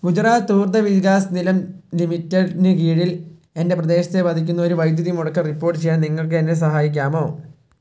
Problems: low volume